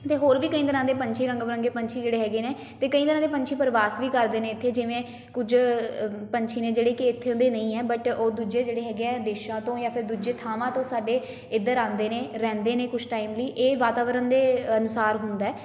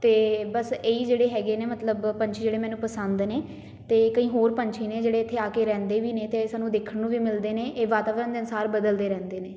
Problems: background sounds at intervals